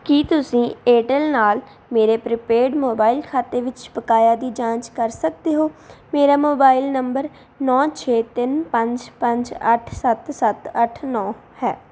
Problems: background sounds at intervals